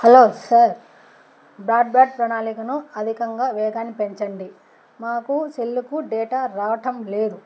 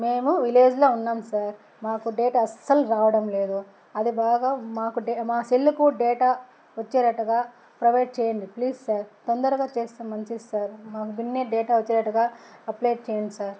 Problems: constant background noise